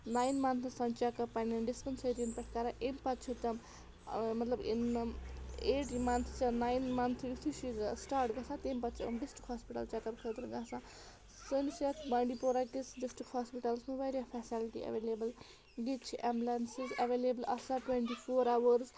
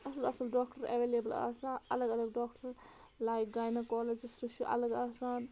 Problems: background sounds at intervals